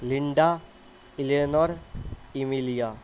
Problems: constant background noise